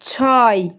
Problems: none marked